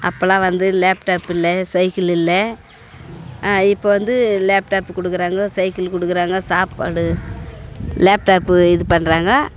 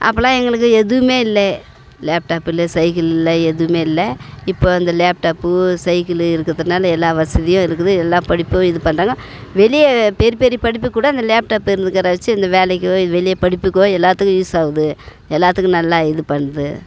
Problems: constant background noise